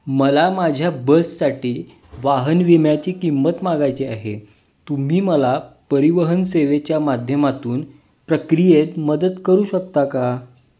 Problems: background sounds at intervals